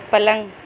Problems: constant background noise, low volume